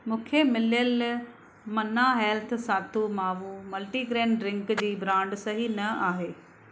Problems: constant background noise